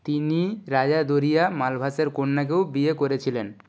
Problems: none marked